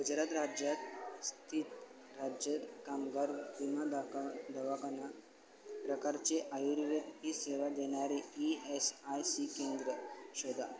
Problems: constant background noise